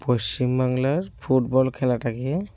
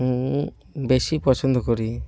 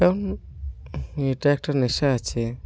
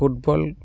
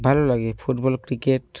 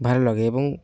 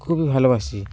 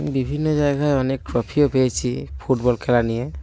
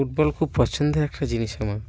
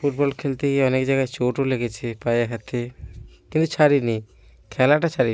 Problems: constant background noise